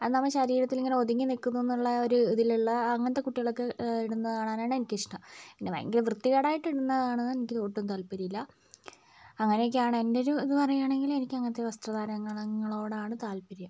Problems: low volume